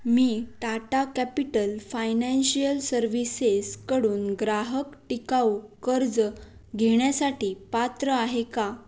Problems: background sounds at intervals